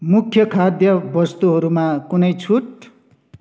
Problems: background sounds at intervals